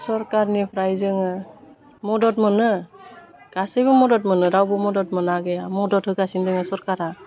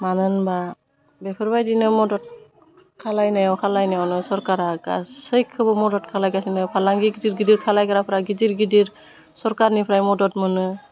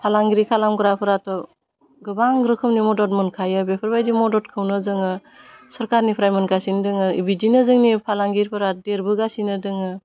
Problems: none marked